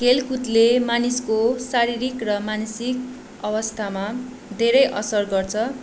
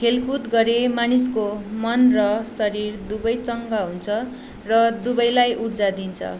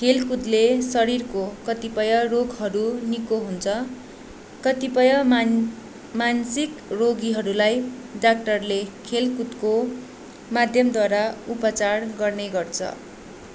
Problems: none marked